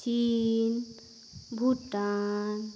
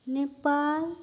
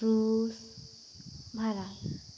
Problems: none marked